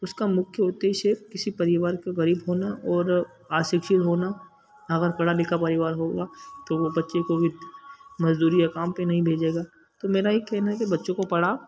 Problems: constant background noise